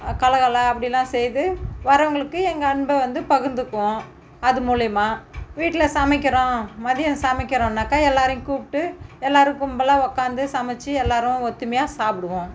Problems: background sounds at intervals